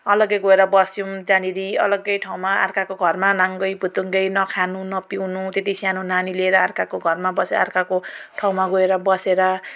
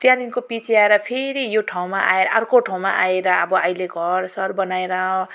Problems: none marked